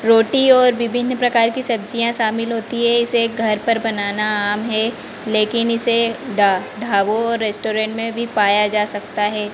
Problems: constant background noise